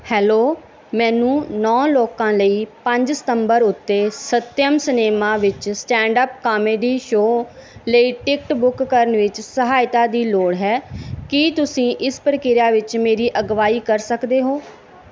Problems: none marked